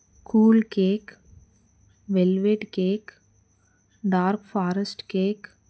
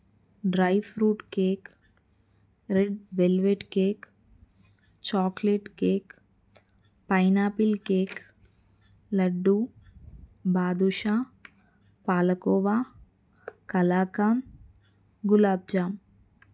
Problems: none marked